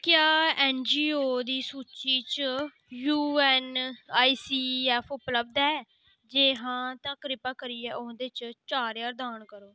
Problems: background sounds at intervals